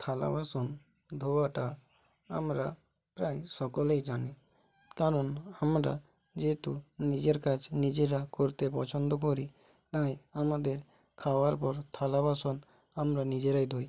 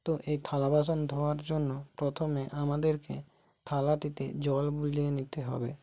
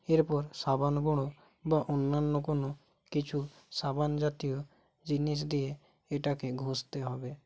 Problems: none marked